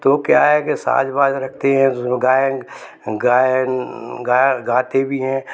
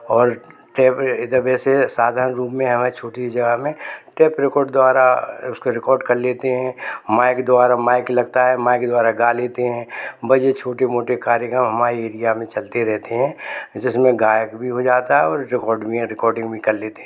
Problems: constant background noise